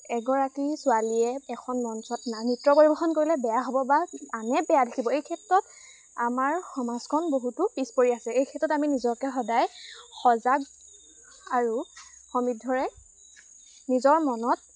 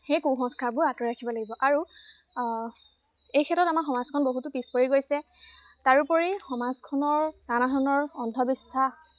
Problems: constant background noise